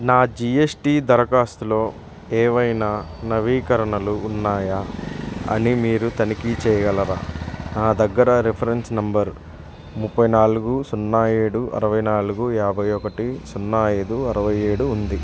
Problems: constant background noise